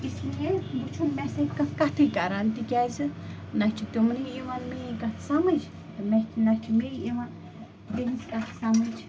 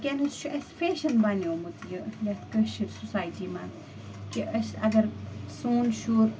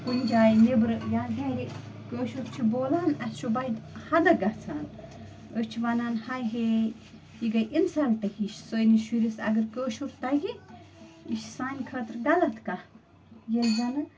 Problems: constant background noise